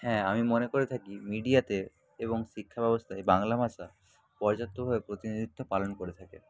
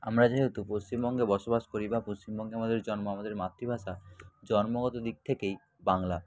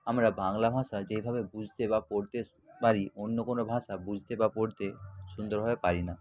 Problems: constant background noise, background conversations at intervals